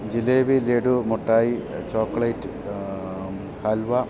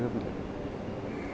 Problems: constant background noise, background conversations at intervals